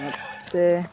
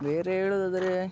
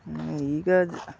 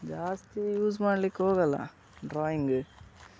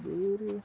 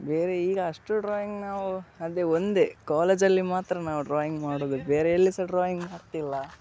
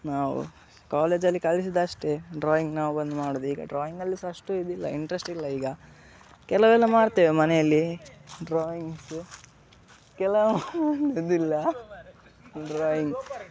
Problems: background sounds at intervals, background conversations at intervals